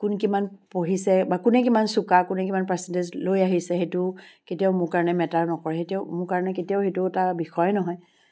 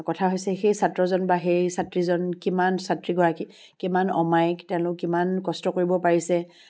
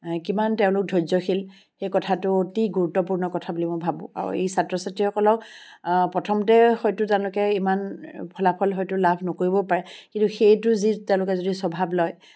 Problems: background sounds at intervals